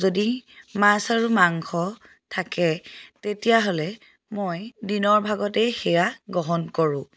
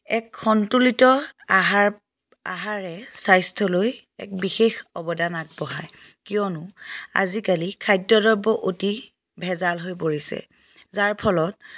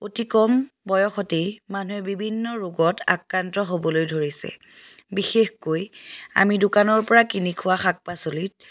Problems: background sounds at intervals